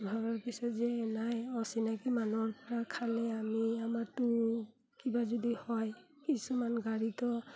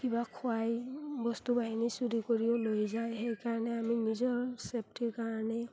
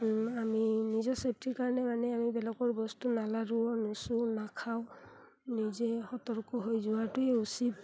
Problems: background sounds at intervals